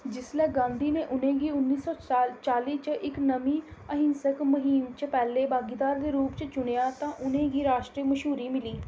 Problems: none marked